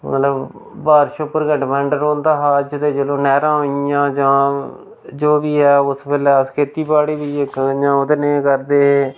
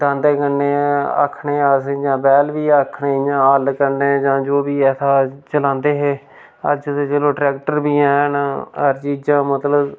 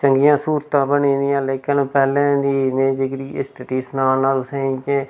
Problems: none marked